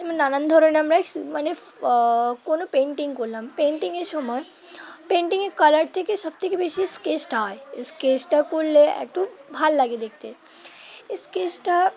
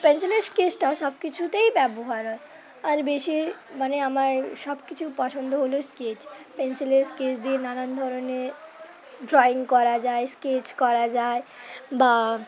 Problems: constant background noise, background conversations at intervals